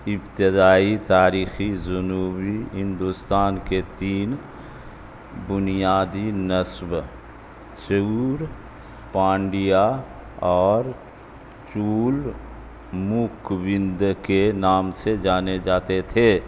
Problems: constant background noise